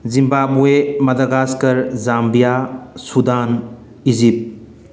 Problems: none marked